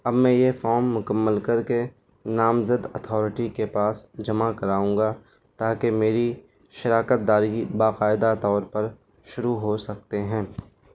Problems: constant background noise